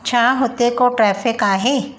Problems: constant background noise, echo